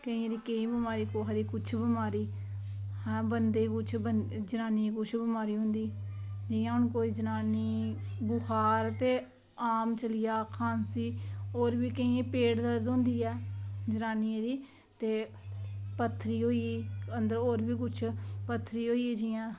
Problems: background sounds at intervals